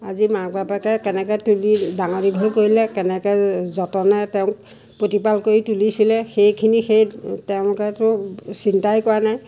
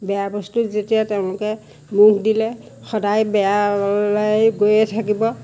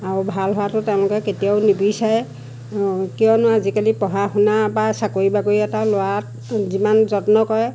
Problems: none marked